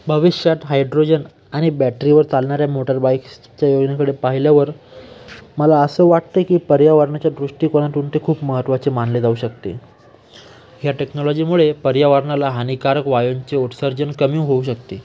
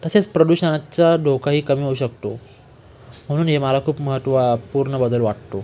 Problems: constant background noise, continuous background conversations